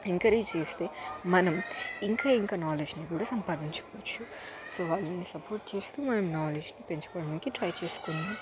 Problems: constant background noise, continuous background conversations